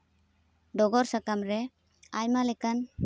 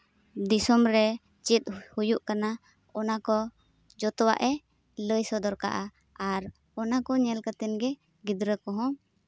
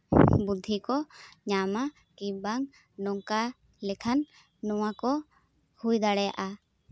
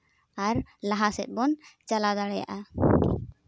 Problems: constant background noise